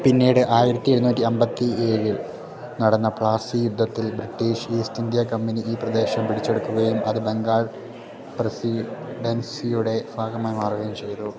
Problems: continuous background conversations